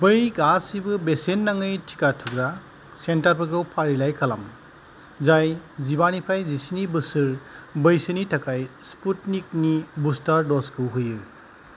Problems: none marked